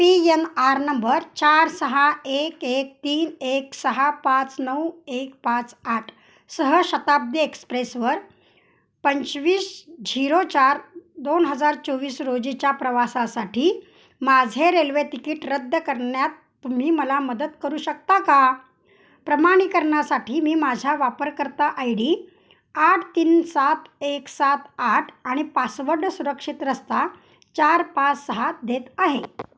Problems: background sounds at intervals